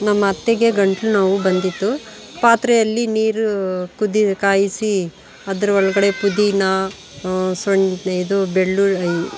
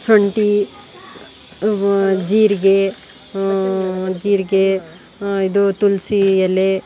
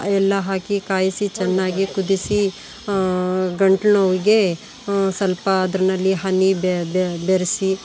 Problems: background sounds at intervals